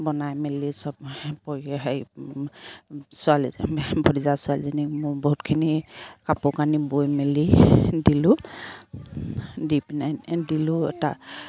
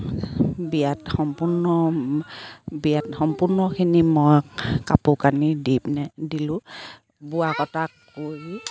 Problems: background sounds at intervals